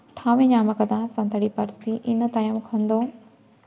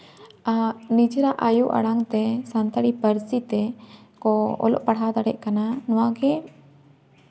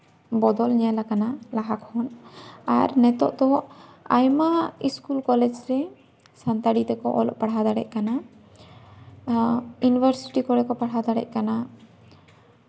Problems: none marked